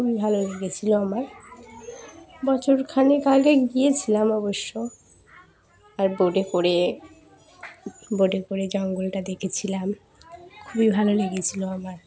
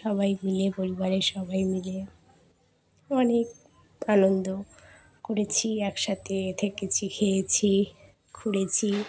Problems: background sounds at intervals, continuous background conversations